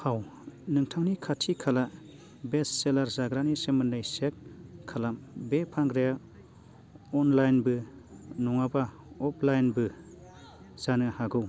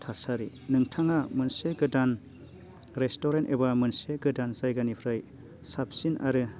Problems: low volume